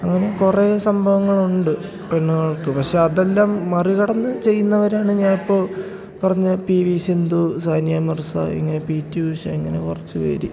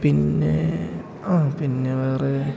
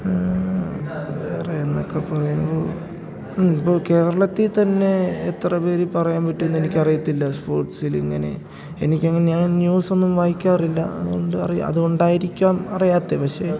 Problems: background sounds at intervals, low volume